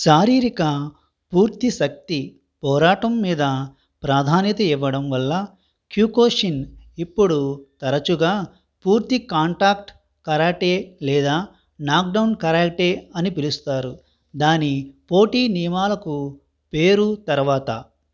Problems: none marked